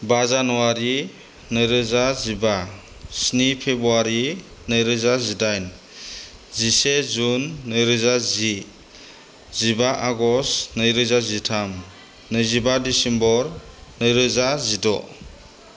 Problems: constant background noise